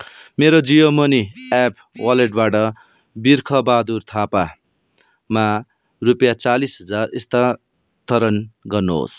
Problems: background sounds at intervals